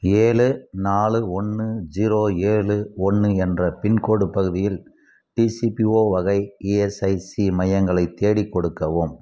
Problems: none marked